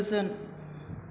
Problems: constant background noise